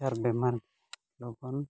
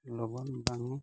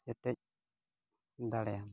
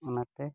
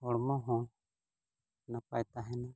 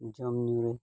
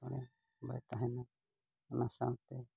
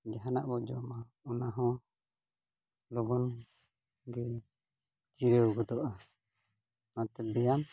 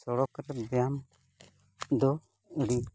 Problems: background sounds at intervals